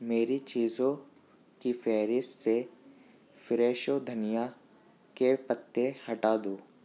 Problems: background sounds at intervals